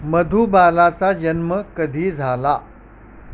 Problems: constant background noise